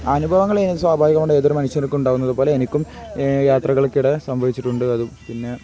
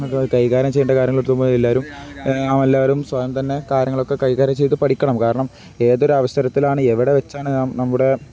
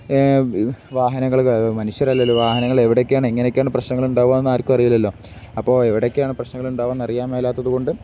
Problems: background sounds at intervals